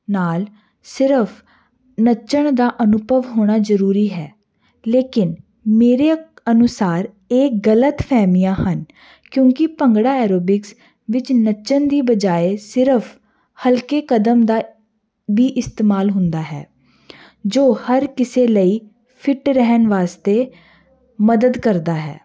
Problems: none marked